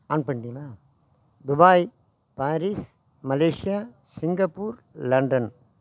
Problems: background conversations at intervals